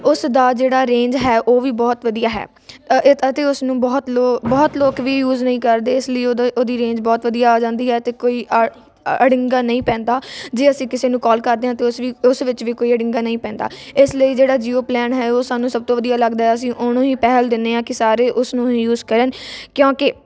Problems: none marked